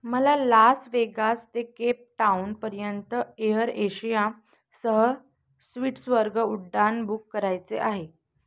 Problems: none marked